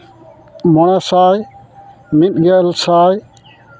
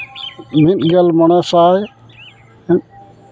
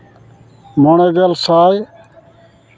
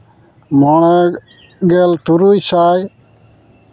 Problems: constant background noise